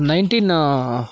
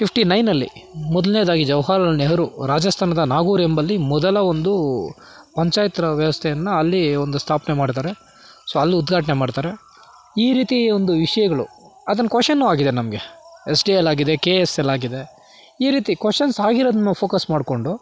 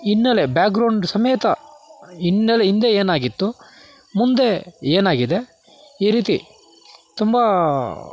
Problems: background sounds at intervals